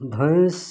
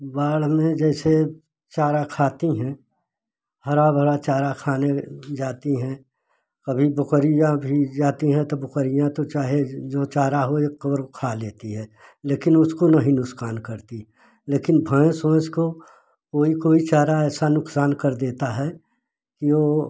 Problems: constant background noise